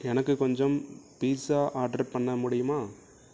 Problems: low volume